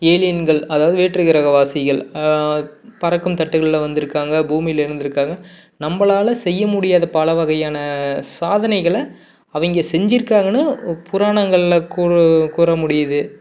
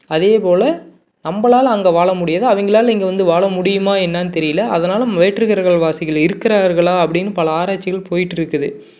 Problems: none marked